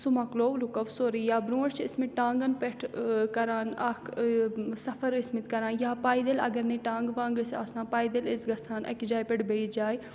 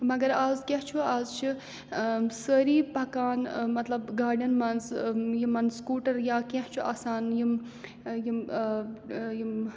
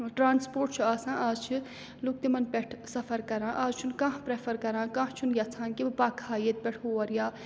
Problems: background sounds at intervals